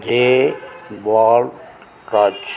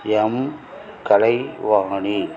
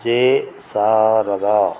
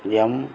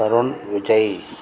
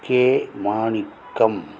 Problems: constant background noise